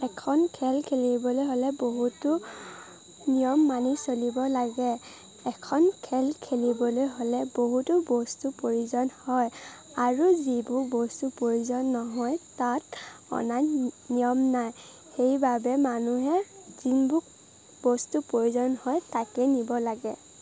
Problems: constant background noise